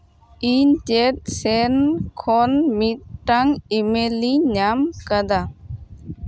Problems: none marked